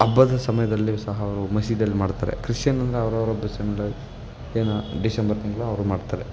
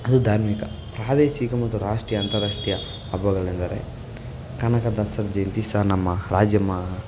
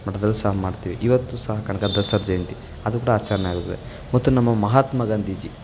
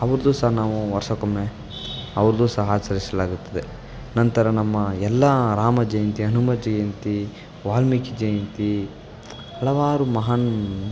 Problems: background sounds at intervals